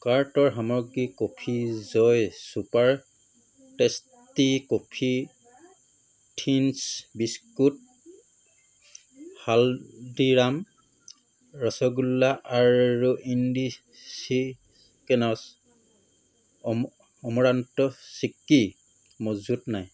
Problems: background sounds at intervals